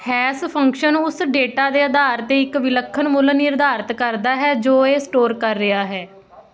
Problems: none marked